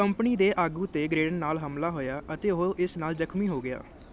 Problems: none marked